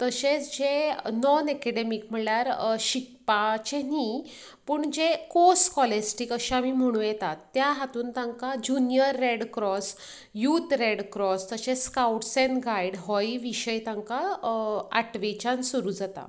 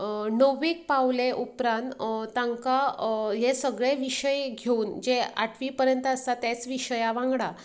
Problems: none marked